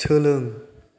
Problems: none marked